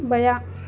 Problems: constant background noise